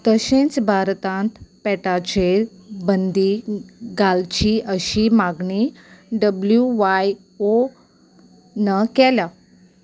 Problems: none marked